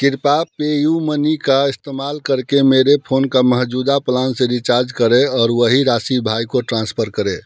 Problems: background sounds at intervals